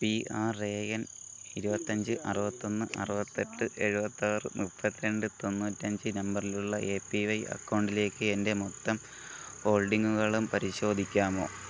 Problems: background sounds at intervals, low volume